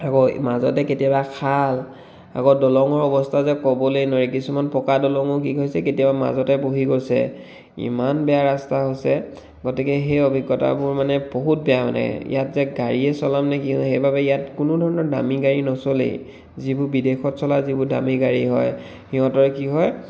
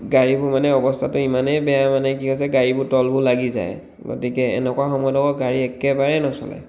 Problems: none marked